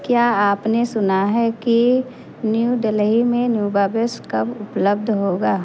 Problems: constant background noise